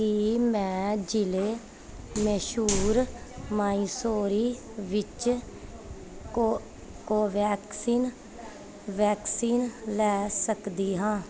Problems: constant background noise